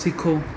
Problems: constant background noise, low volume